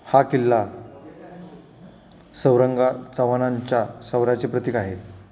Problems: constant background noise